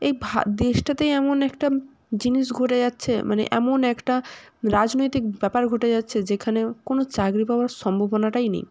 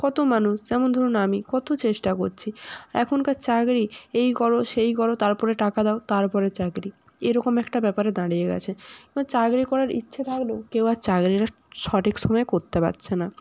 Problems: background sounds at intervals